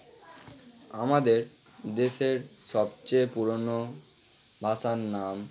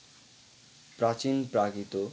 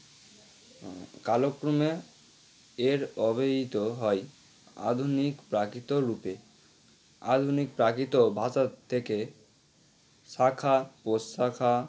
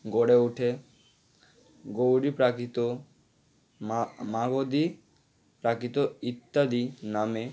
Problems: constant background noise